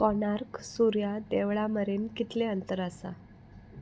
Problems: constant background noise